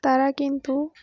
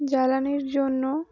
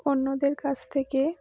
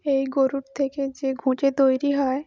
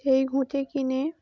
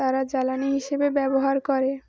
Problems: none marked